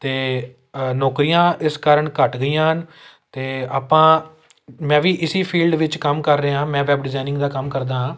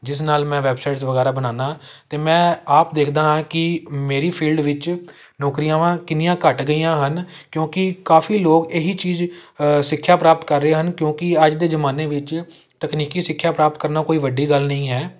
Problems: none marked